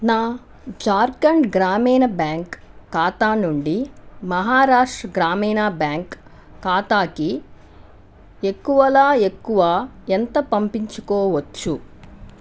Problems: none marked